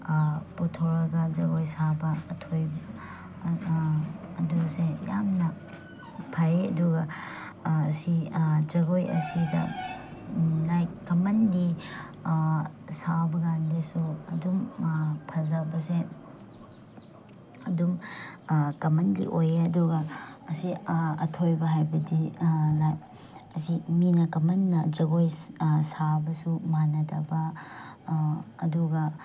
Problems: background sounds at intervals